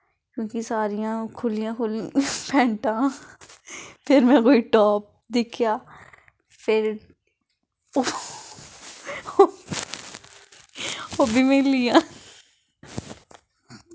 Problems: background conversations at intervals